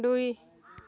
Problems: background sounds at intervals, background conversations at intervals